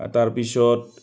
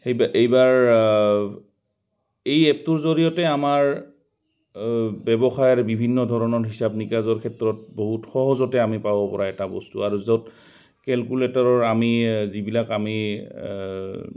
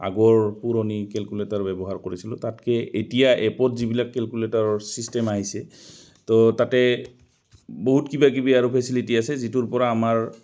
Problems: constant background noise, background conversations at intervals